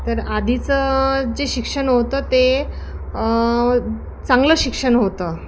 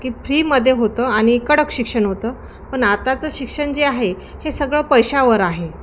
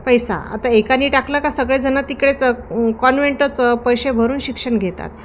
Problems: constant background noise